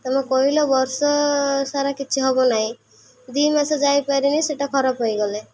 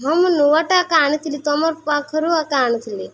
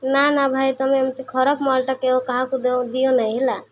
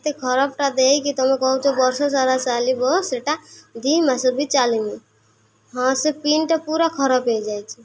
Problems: none marked